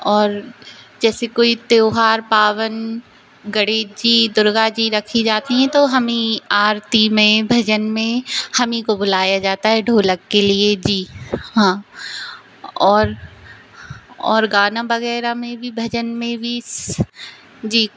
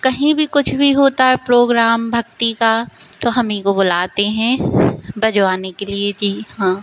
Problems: constant background noise